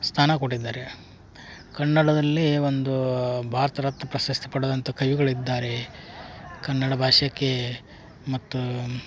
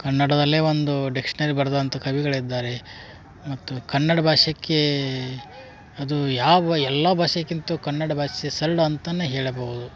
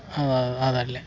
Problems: background conversations at intervals